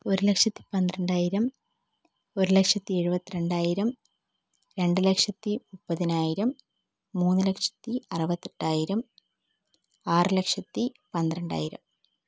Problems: low volume